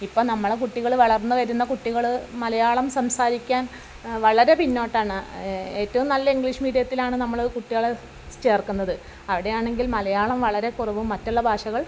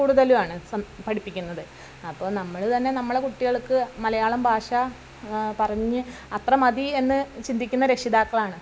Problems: background sounds at intervals